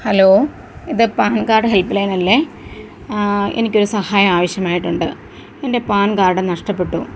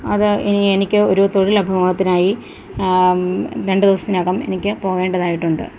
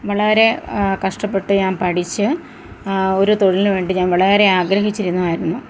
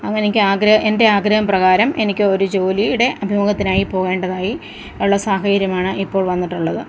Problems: constant background noise